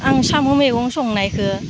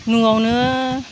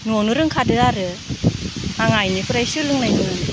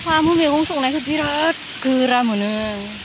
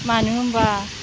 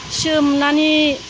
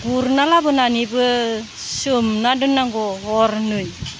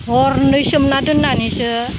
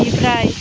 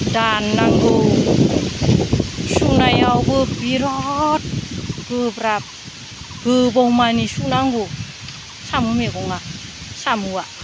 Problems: none marked